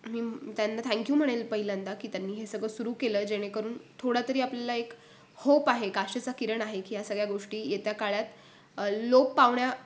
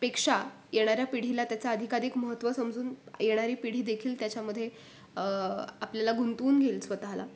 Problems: none marked